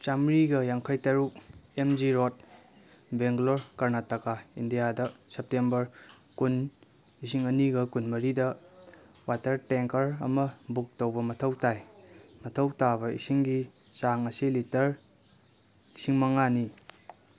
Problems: none marked